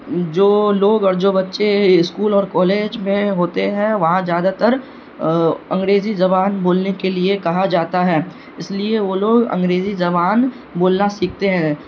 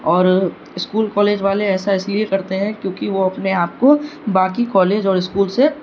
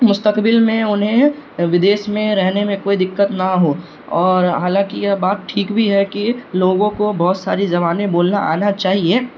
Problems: background sounds at intervals